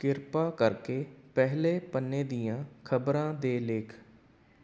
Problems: none marked